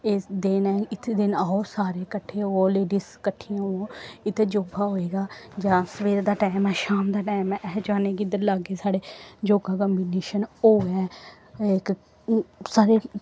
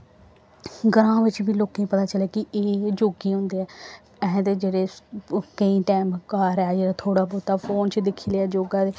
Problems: none marked